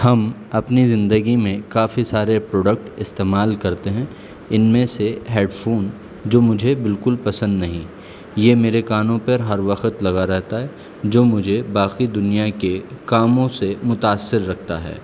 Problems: constant background noise